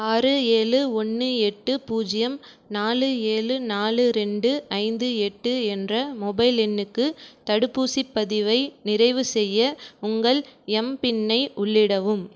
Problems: none marked